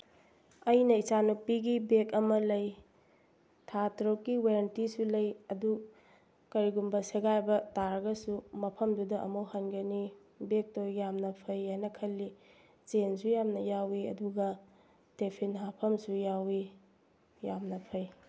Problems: background sounds at intervals